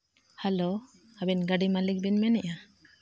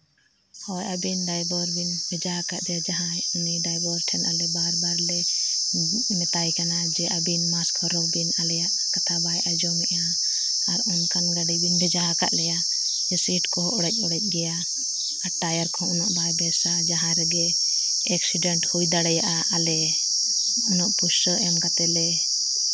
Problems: constant background noise